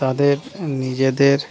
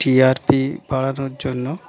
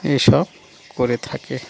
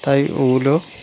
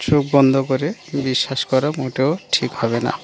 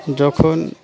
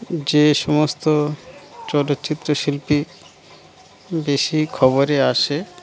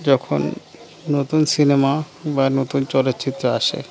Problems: constant background noise